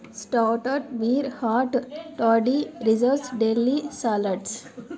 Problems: background conversations at intervals